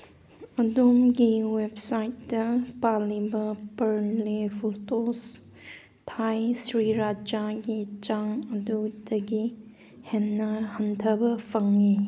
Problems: background sounds at intervals